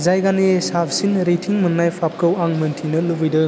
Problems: constant background noise